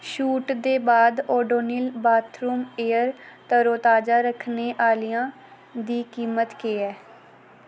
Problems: background sounds at intervals